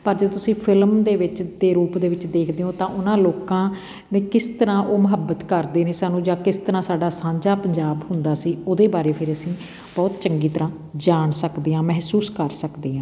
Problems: background conversations at intervals